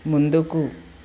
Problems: constant background noise